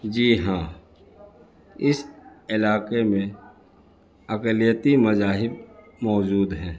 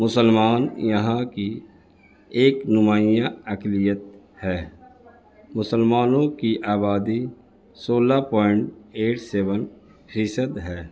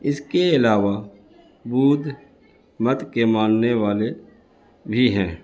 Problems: constant background noise